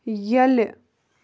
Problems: constant background noise